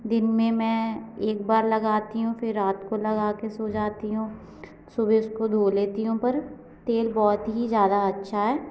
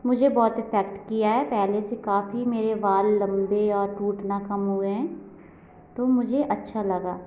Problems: constant background noise